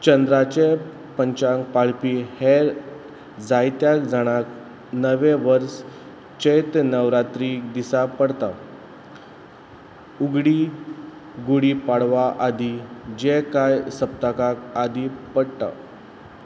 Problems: constant background noise